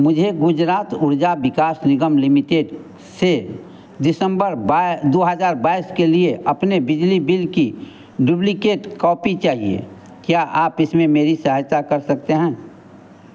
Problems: constant background noise